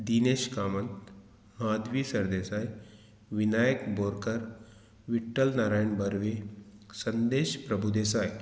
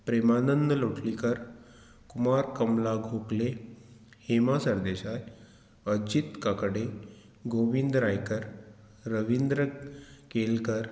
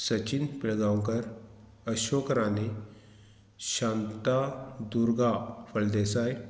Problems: none marked